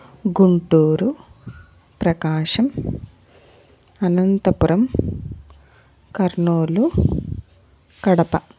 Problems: none marked